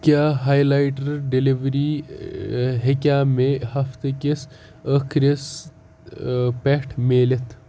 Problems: background sounds at intervals